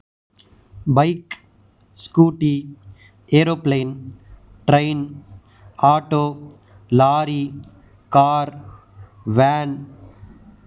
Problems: none marked